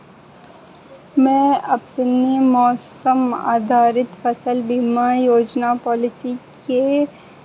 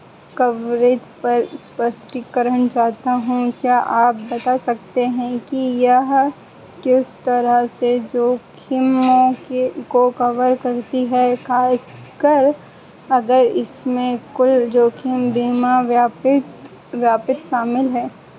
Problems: constant background noise